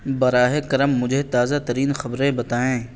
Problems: none marked